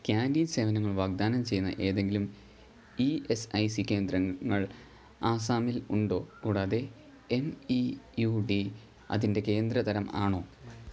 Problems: low volume